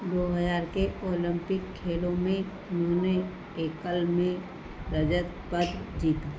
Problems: constant background noise